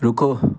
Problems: constant background noise